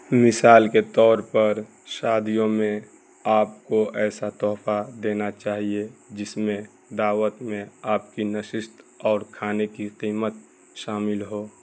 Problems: constant background noise